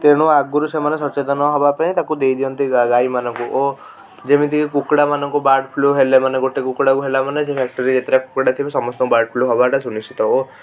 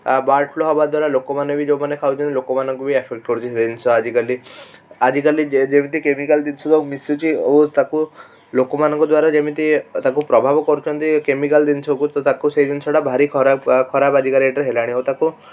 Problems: constant background noise, continuous background conversations